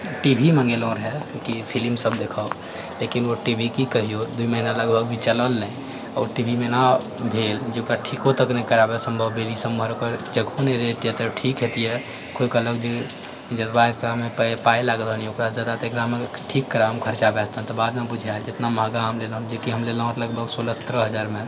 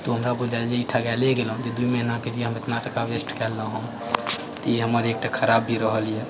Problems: none marked